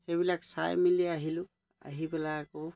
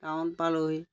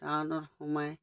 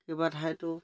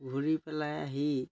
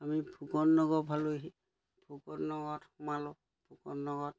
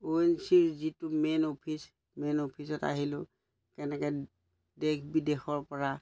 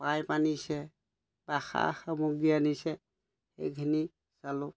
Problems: none marked